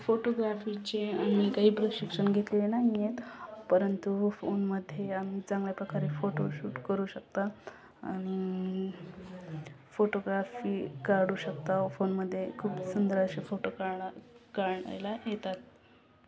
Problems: constant background noise, continuous background conversations